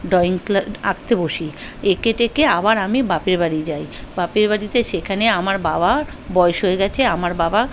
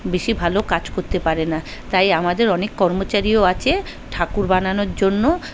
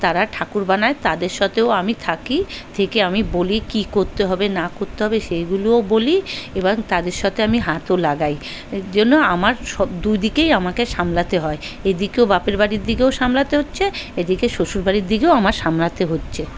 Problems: background conversations at intervals